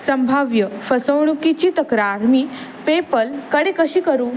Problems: none marked